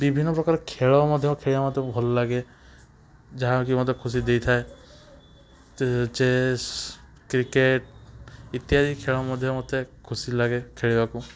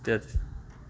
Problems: background sounds at intervals, background conversations at intervals